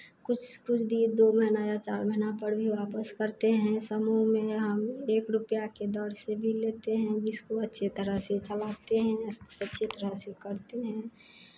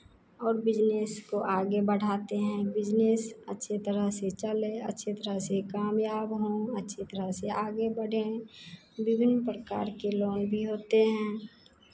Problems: none marked